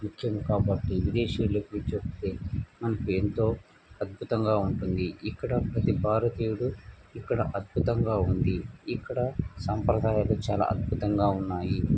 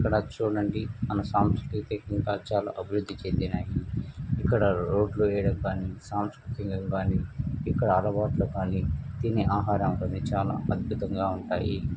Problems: constant background noise